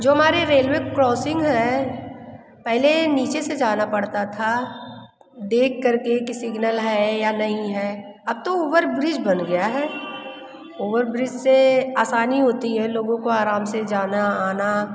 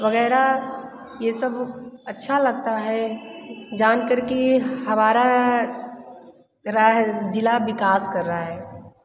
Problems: constant background noise, background conversations at intervals